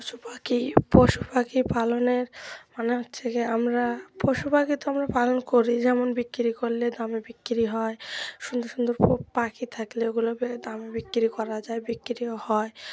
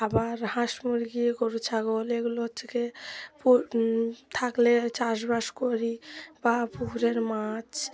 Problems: background sounds at intervals